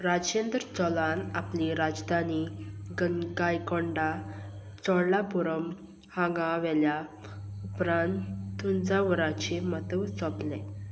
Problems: constant background noise